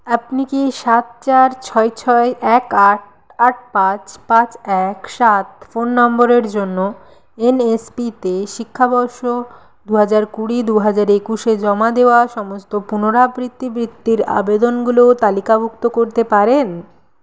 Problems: constant background noise